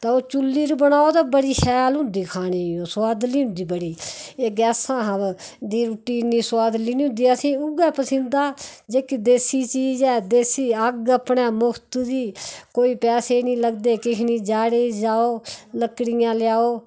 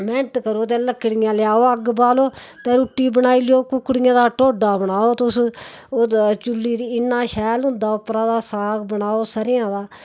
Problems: background sounds at intervals